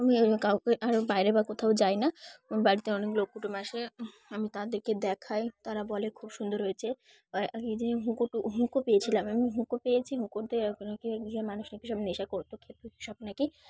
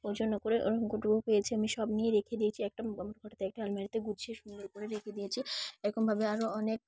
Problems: background sounds at intervals